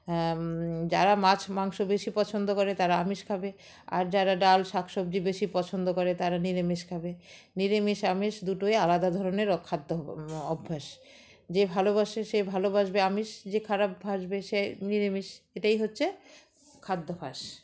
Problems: none marked